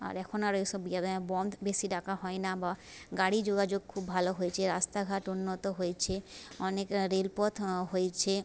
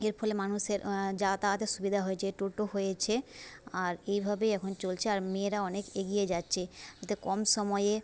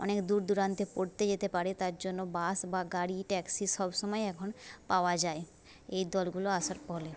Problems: none marked